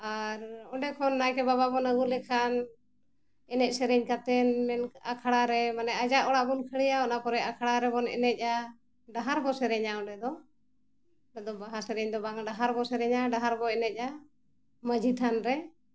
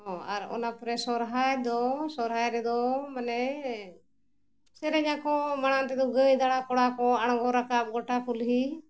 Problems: none marked